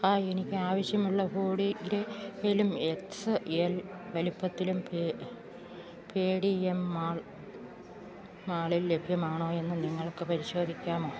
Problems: background sounds at intervals